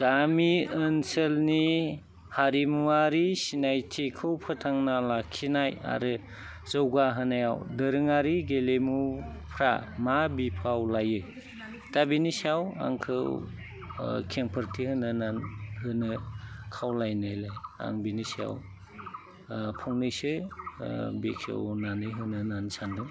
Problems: constant background noise